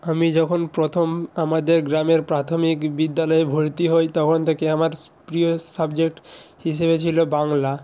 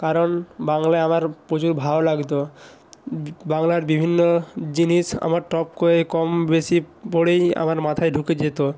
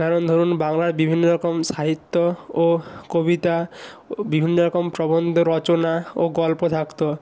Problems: none marked